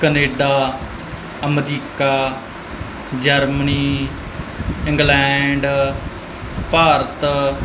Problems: none marked